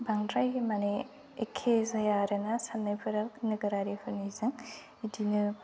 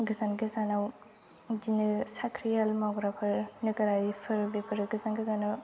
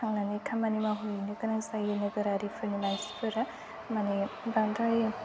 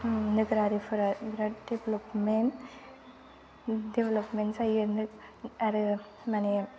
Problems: low volume